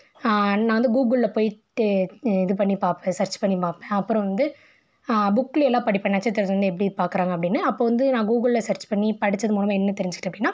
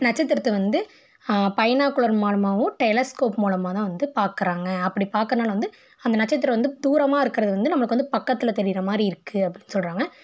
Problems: none marked